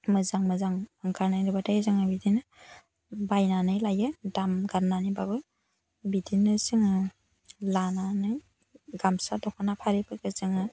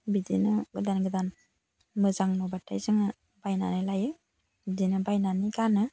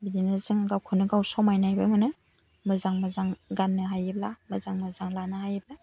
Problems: none marked